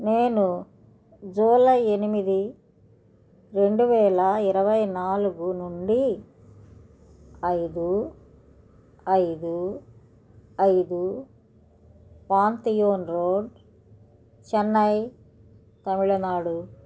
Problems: none marked